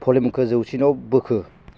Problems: constant background noise